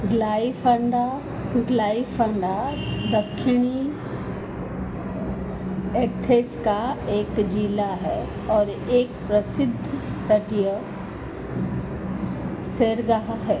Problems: constant background noise